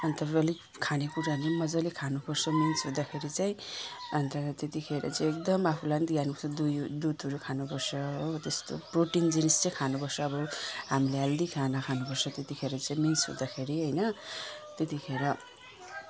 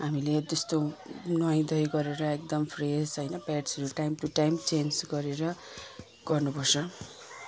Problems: none marked